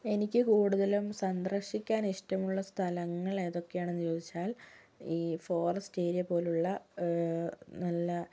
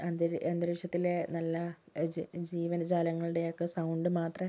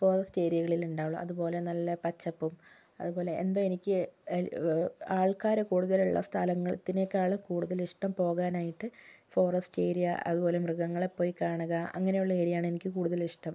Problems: low volume